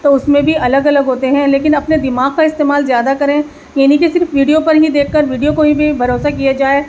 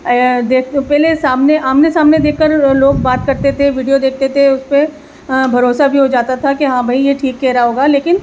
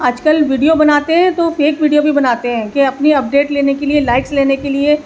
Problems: constant background noise, background conversations at intervals